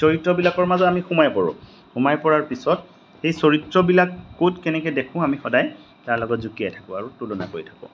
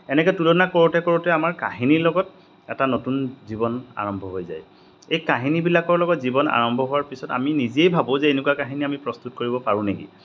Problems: none marked